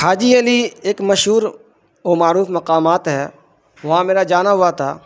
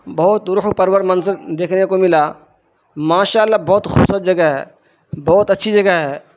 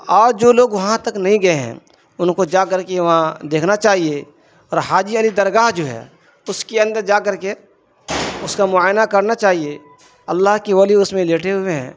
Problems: constant background noise